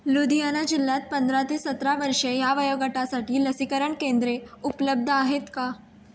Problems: background sounds at intervals